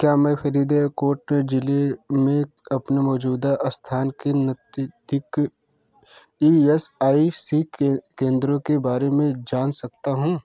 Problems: none marked